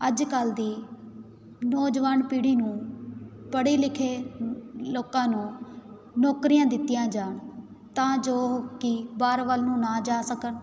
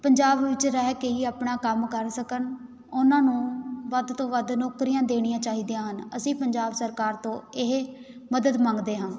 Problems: none marked